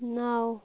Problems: background sounds at intervals